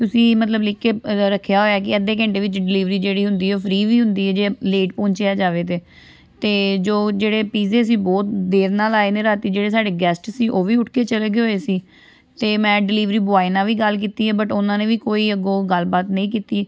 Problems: constant background noise, background conversations at intervals